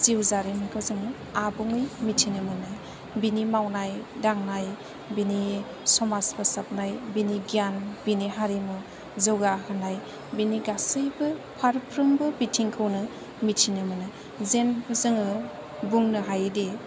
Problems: low volume